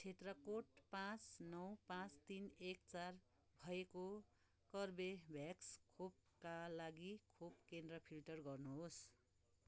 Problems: background sounds at intervals